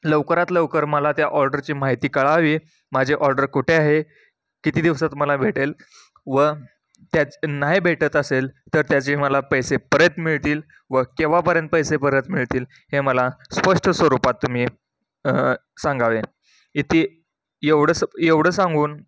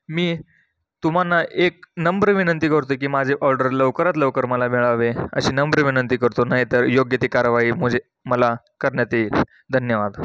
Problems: background sounds at intervals